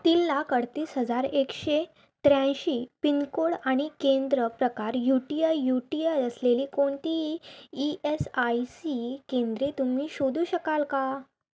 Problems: constant background noise